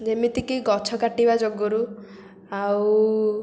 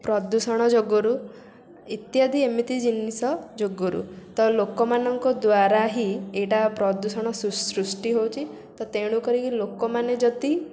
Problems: constant background noise